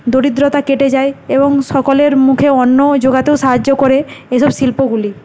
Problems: none marked